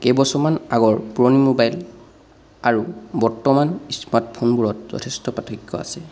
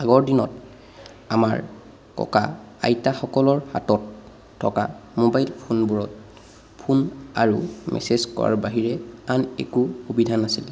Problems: none marked